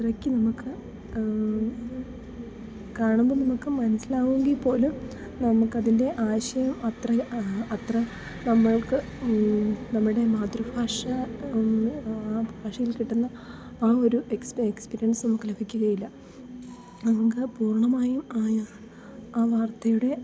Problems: background sounds at intervals, low volume